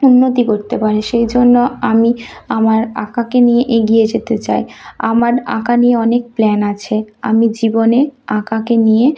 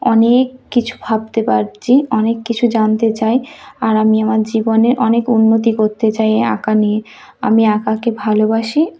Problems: background sounds at intervals